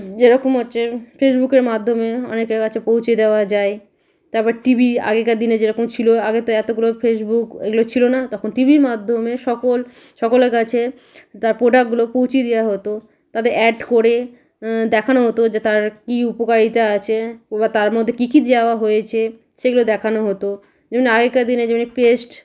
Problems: background sounds at intervals